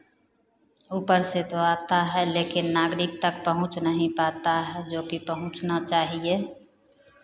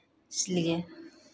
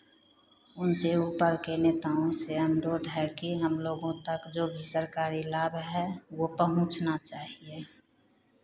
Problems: none marked